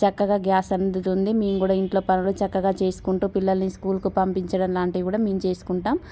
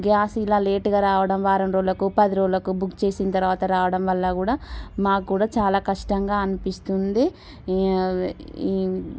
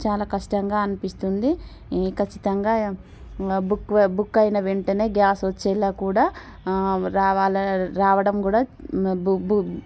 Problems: none marked